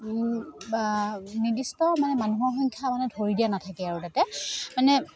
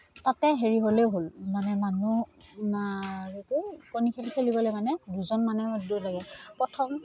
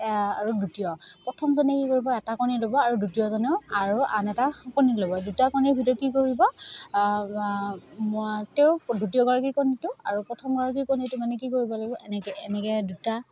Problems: none marked